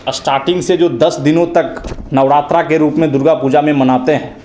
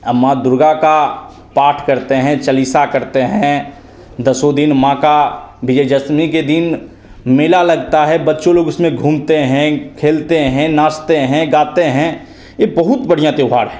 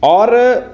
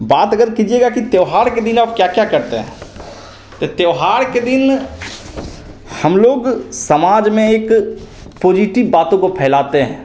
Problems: constant background noise, echo